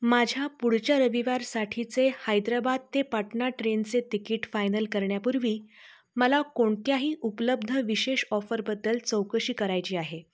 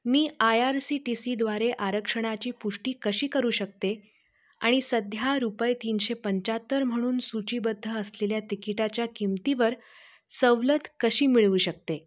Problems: background sounds at intervals